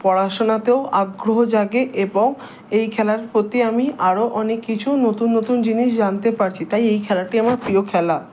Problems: constant background noise